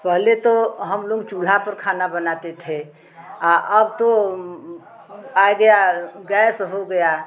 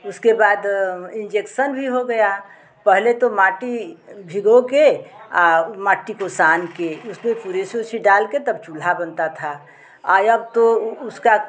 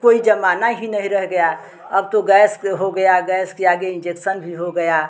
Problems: background sounds at intervals, background conversations at intervals